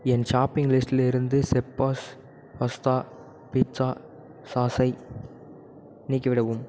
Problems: none marked